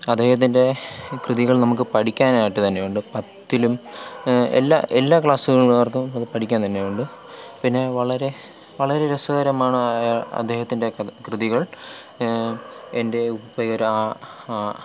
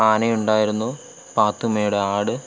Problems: constant background noise